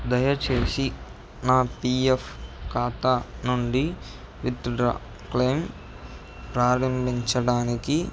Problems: background sounds at intervals